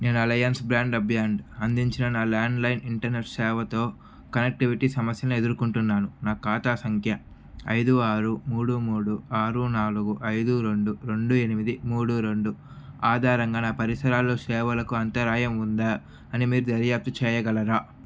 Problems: constant background noise